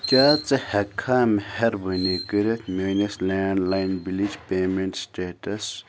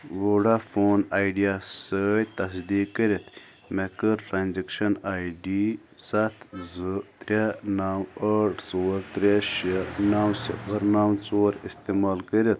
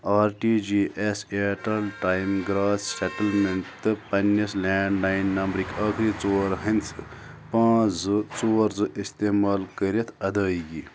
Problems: background sounds at intervals